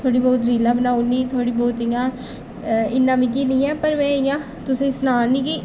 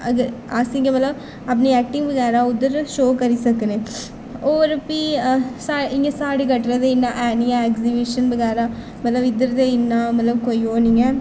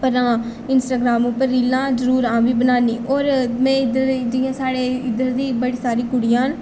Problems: none marked